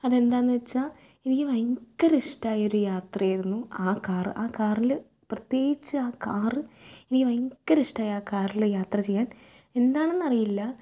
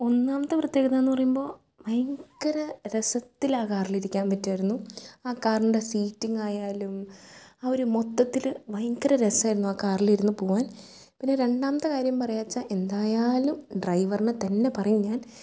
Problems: low volume